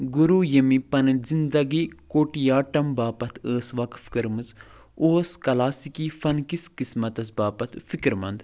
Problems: none marked